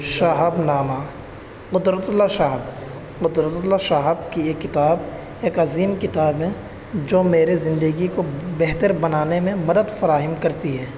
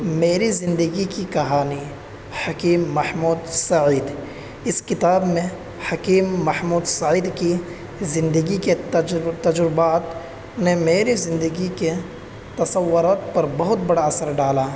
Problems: constant background noise, background conversations at intervals